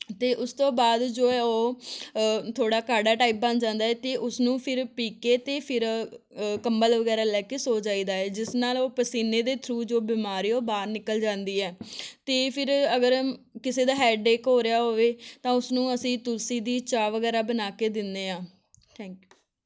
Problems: background sounds at intervals